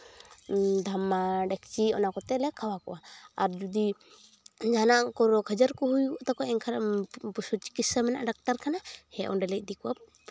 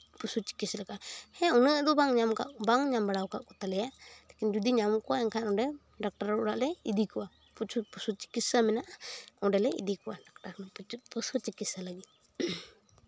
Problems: background sounds at intervals